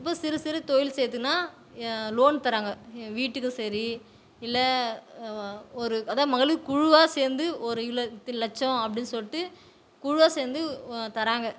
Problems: none marked